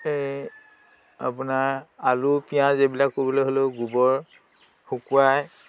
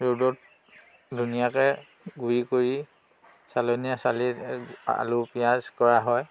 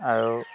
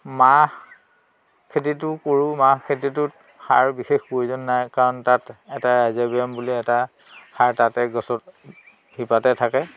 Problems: constant background noise